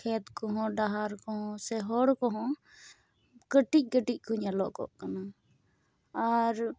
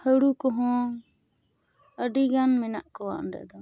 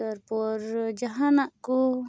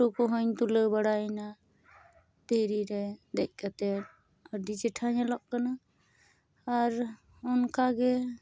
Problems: none marked